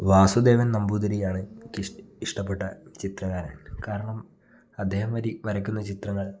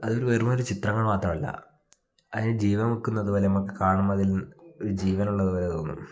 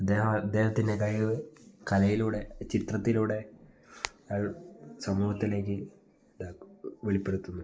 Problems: none marked